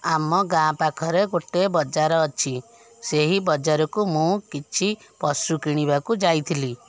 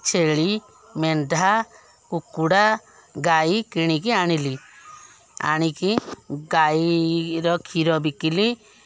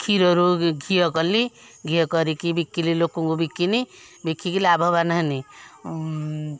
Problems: background sounds at intervals, background conversations at intervals